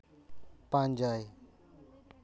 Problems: none marked